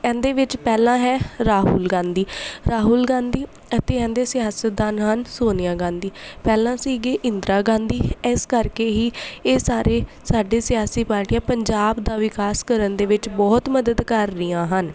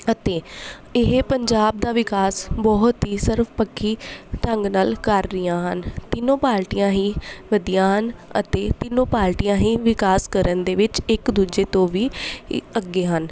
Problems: none marked